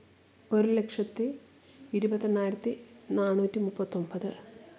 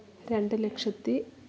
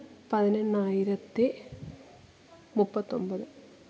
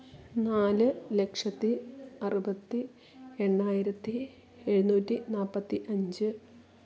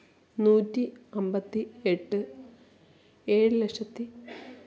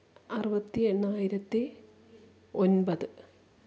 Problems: low volume